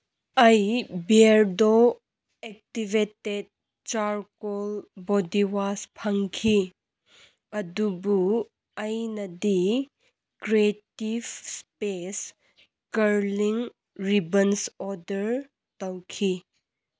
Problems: none marked